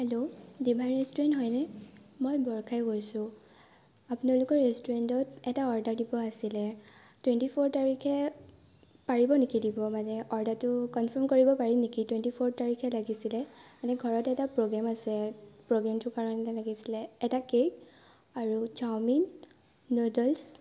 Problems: background sounds at intervals